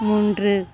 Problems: background sounds at intervals